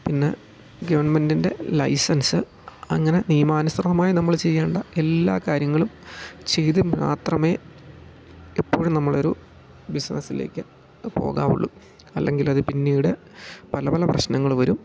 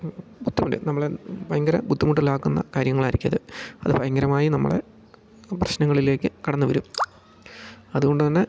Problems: none marked